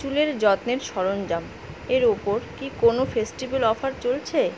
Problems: constant background noise